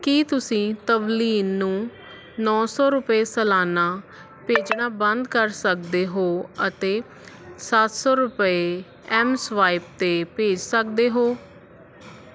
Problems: constant background noise